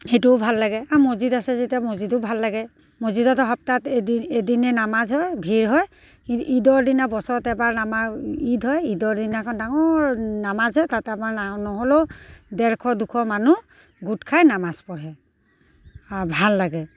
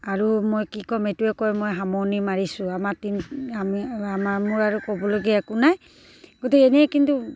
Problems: none marked